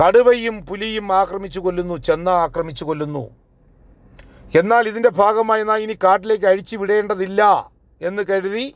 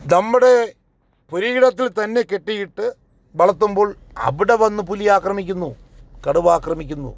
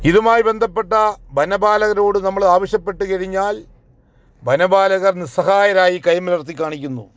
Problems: none marked